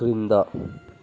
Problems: none marked